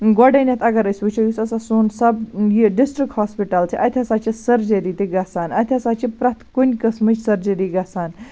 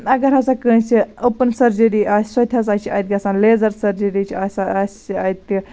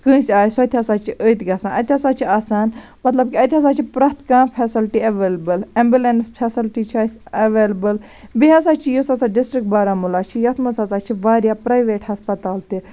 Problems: constant background noise